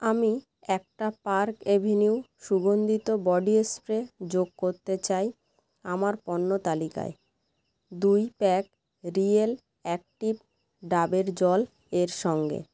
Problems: constant background noise